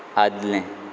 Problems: constant background noise